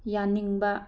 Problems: low volume